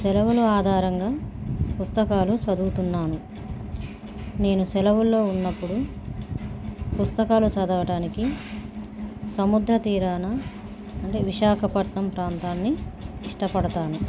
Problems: background sounds at intervals